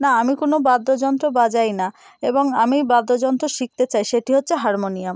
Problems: constant background noise